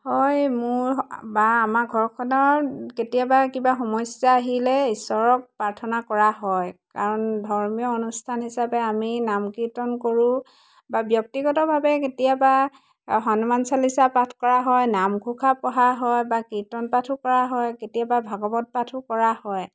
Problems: constant background noise